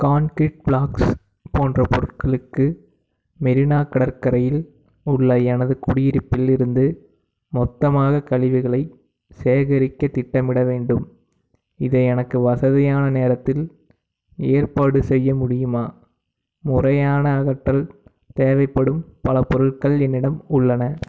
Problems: background sounds at intervals